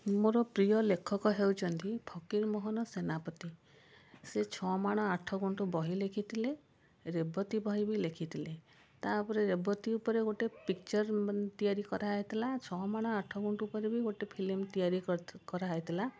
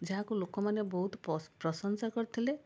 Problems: constant background noise